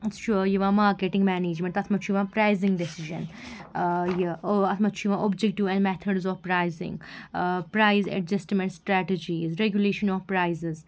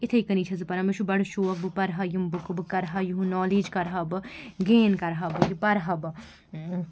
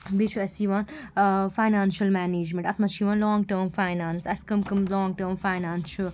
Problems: background sounds at intervals